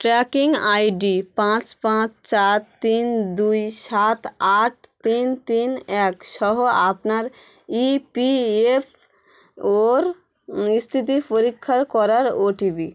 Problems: constant background noise